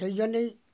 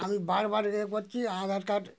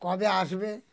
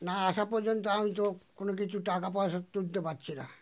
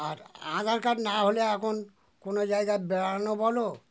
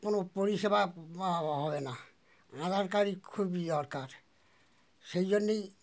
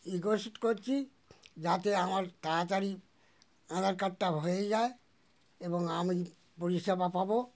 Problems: none marked